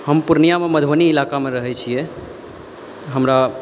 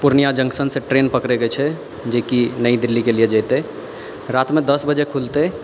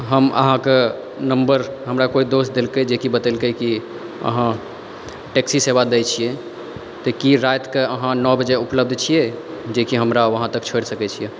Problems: background sounds at intervals